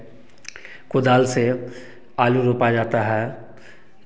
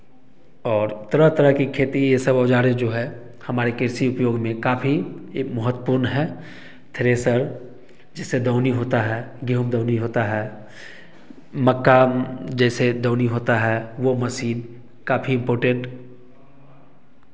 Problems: echo